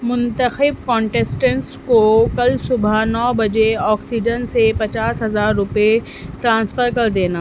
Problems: constant background noise